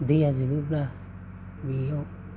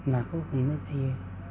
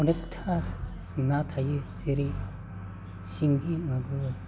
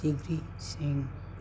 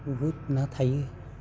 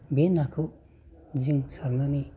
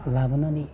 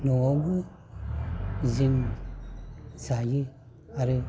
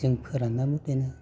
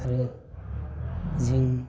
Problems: constant background noise